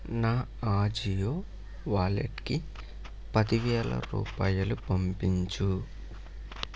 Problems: none marked